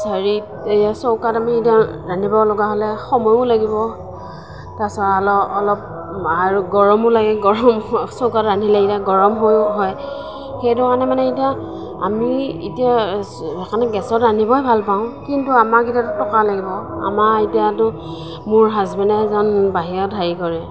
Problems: constant background noise, background conversations at intervals